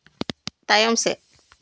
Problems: none marked